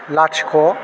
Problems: constant background noise